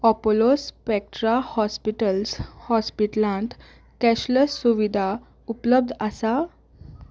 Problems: none marked